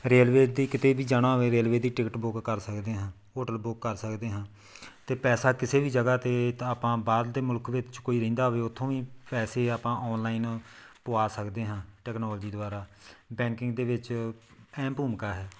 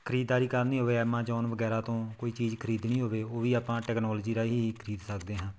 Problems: background sounds at intervals